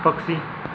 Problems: none marked